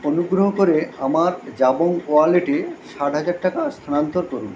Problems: constant background noise